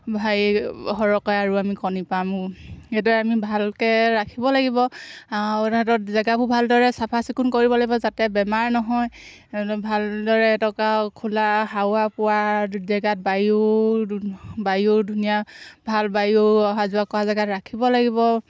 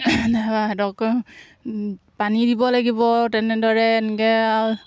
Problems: background sounds at intervals